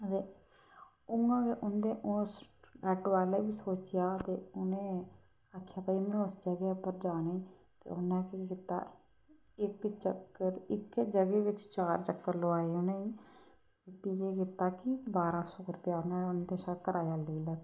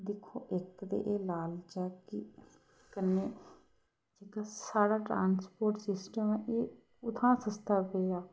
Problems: constant background noise